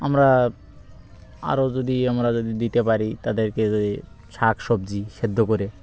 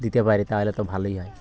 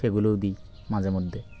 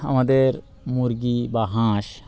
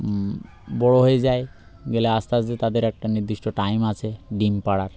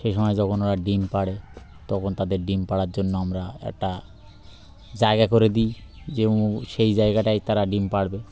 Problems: constant background noise